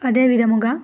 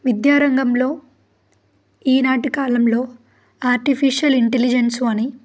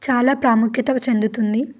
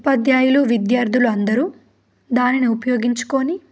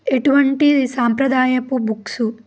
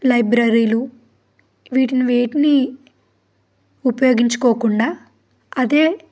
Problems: background sounds at intervals